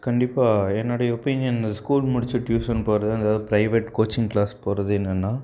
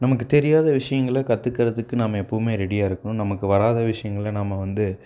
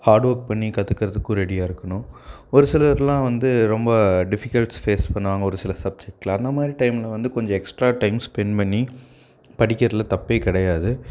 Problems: none marked